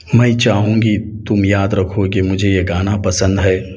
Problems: none marked